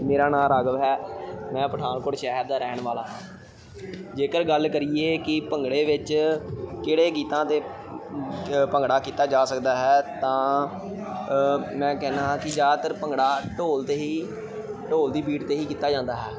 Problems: continuous background conversations